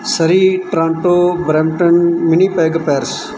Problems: none marked